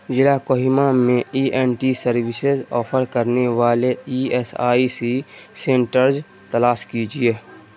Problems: constant background noise